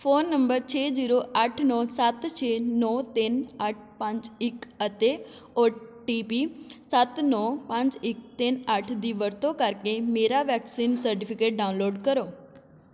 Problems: constant background noise